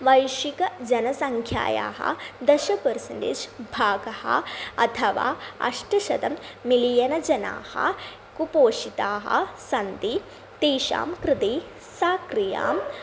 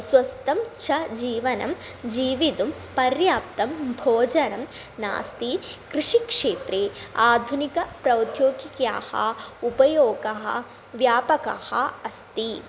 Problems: none marked